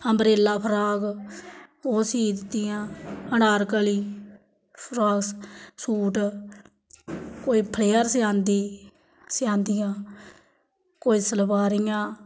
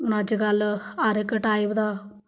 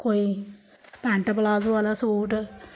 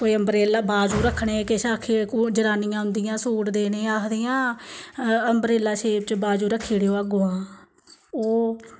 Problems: background sounds at intervals, background conversations at intervals